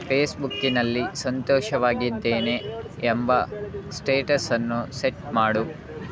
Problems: constant background noise, continuous background conversations